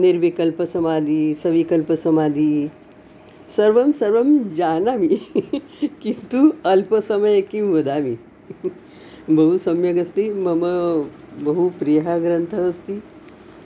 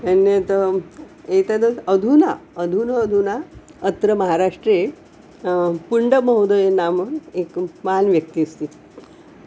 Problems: background sounds at intervals